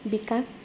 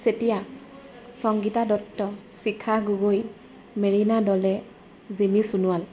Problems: constant background noise, background conversations at intervals